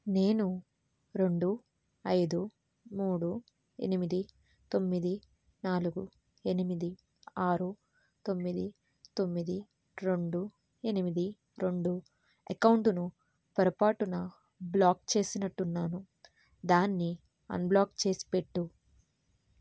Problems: low volume